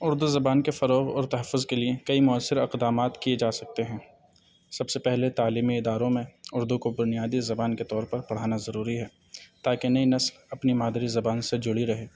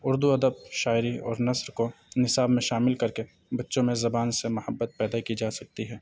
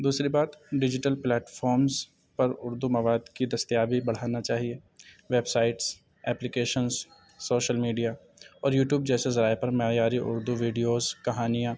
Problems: none marked